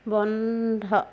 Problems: none marked